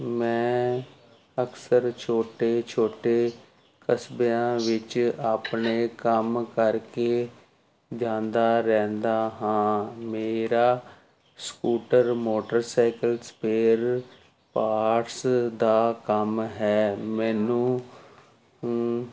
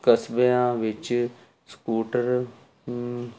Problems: constant background noise